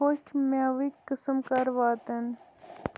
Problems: none marked